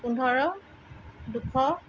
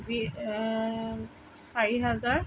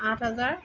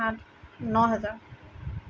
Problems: none marked